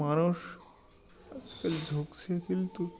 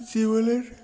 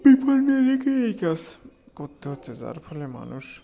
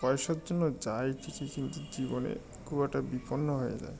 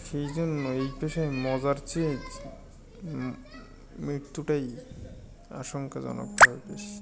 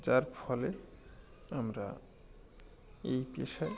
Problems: constant background noise, continuous background conversations